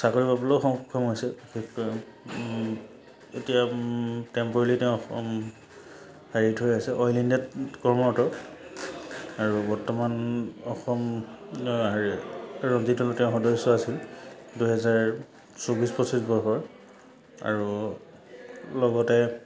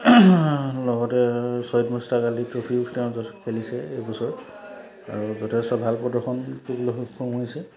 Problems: none marked